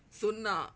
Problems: none marked